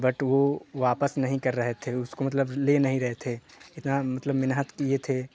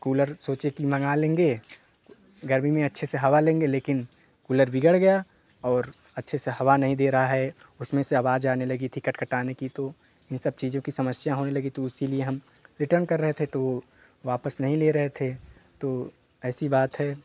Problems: constant background noise